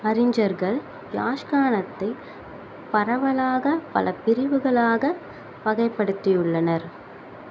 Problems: constant background noise